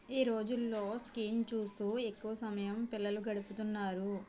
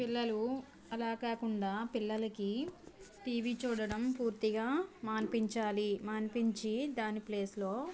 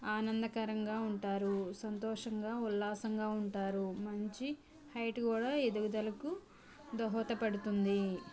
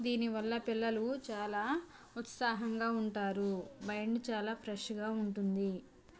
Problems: background conversations at intervals